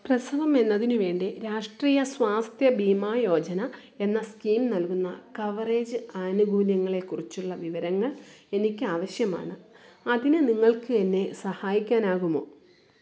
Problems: none marked